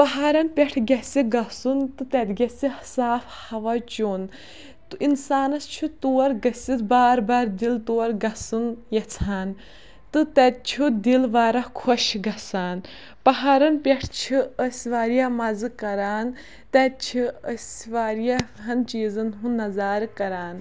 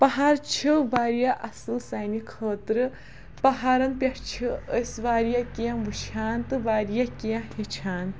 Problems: background sounds at intervals